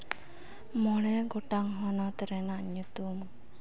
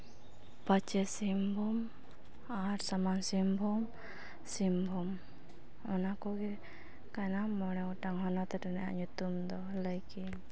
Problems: background sounds at intervals